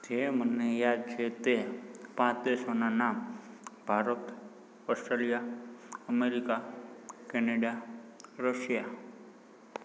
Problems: background sounds at intervals